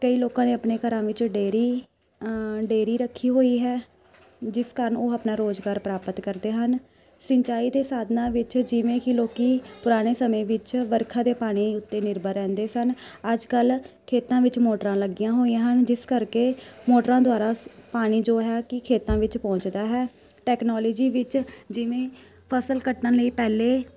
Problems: constant background noise, background conversations at intervals